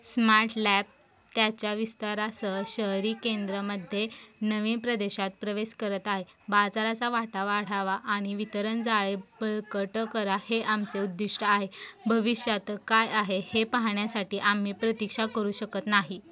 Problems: constant background noise, continuous background conversations